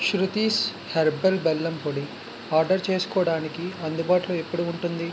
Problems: constant background noise